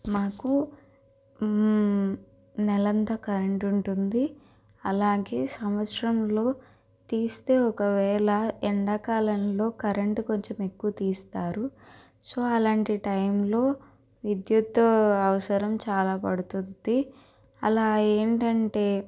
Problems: constant background noise